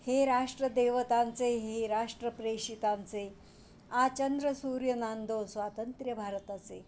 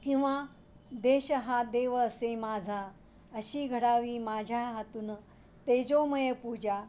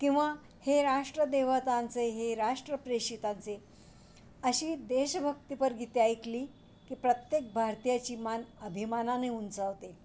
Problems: none marked